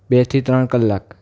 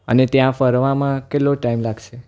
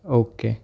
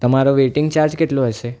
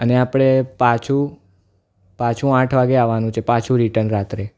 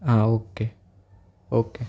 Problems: none marked